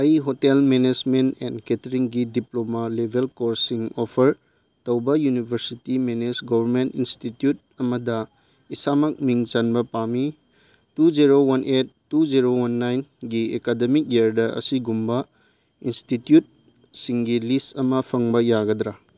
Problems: none marked